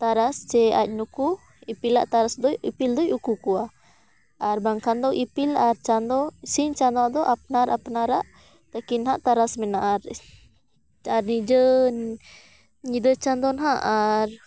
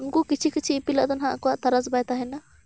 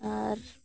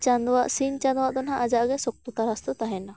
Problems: background sounds at intervals